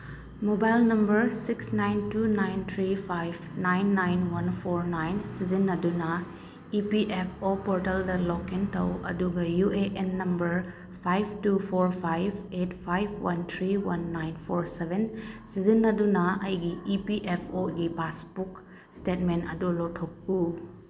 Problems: none marked